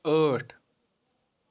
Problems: none marked